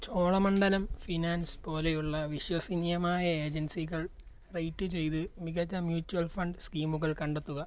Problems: low volume